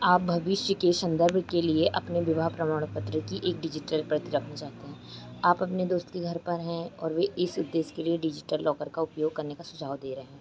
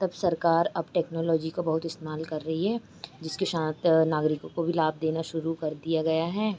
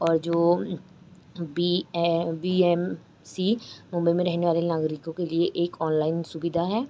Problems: none marked